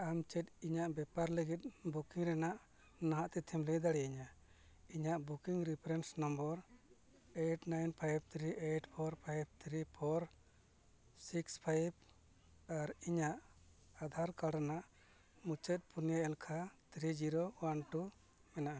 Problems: background sounds at intervals, low volume